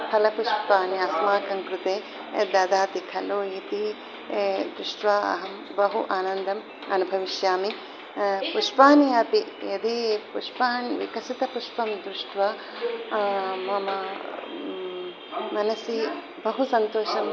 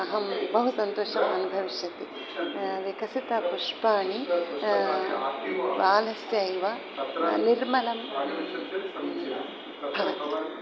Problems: background sounds at intervals